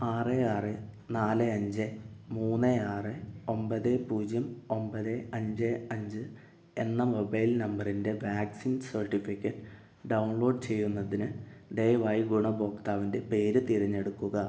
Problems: low volume